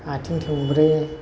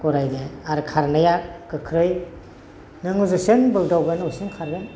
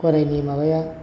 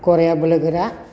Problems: constant background noise